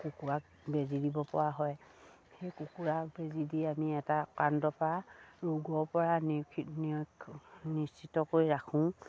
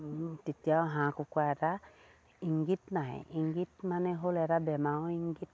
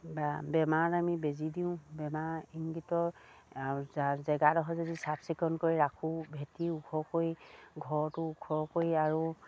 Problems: none marked